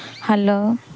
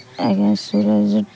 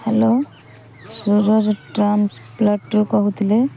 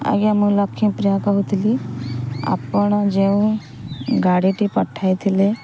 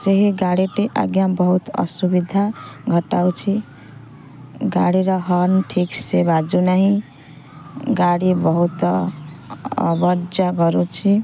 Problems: constant background noise